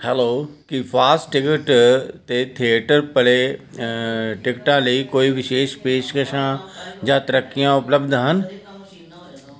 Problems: continuous background conversations